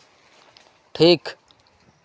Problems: background sounds at intervals